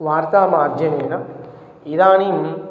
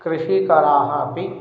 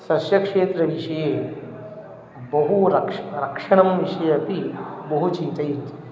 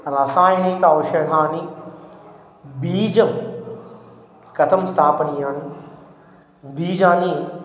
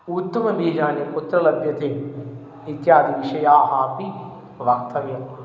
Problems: background sounds at intervals